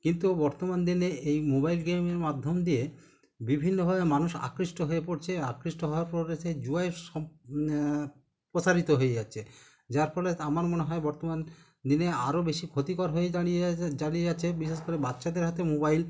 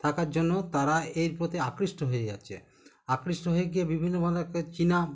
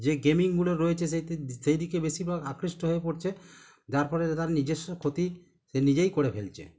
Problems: background sounds at intervals